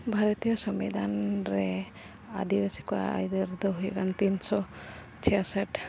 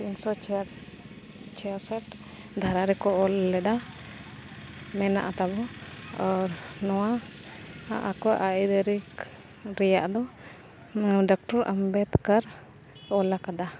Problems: constant background noise, continuous background conversations